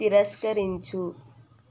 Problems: low volume